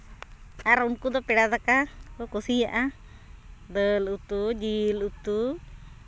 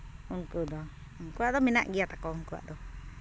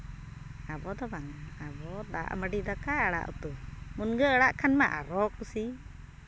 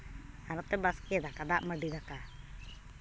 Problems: constant background noise